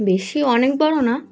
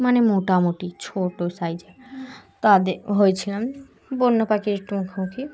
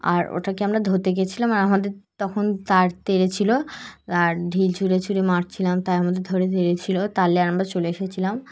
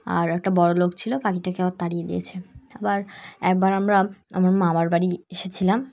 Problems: none marked